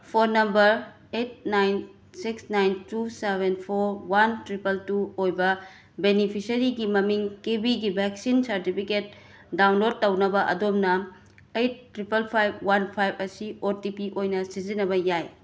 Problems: background sounds at intervals